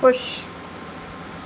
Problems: constant background noise